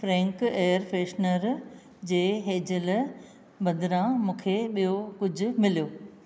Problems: none marked